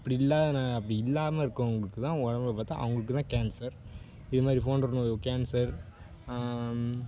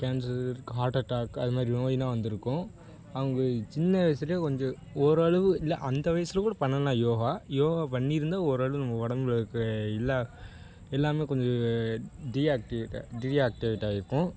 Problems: constant background noise